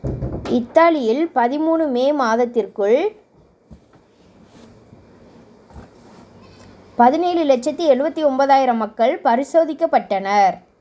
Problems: background sounds at intervals